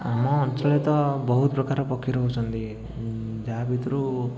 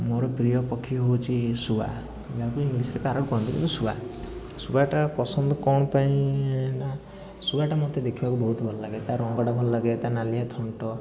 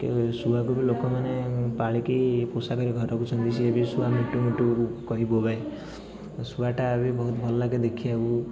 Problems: continuous background conversations